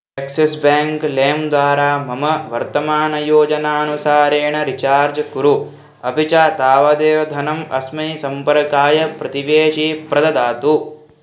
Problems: constant background noise